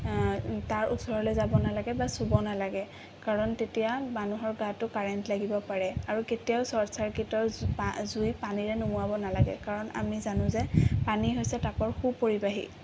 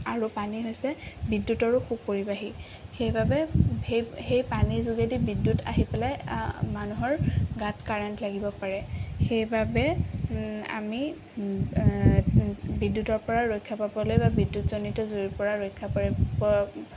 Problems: background sounds at intervals